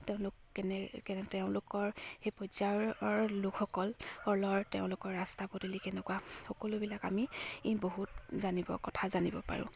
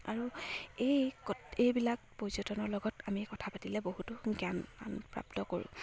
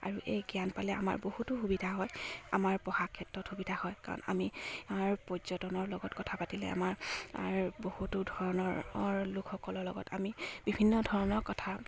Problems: none marked